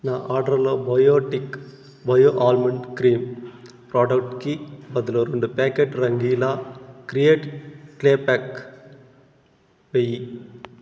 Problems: constant background noise